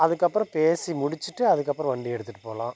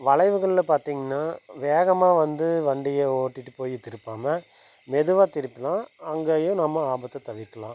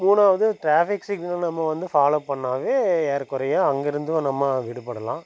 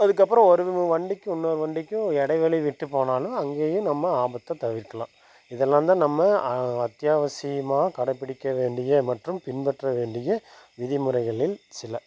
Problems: constant background noise